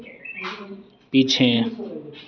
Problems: constant background noise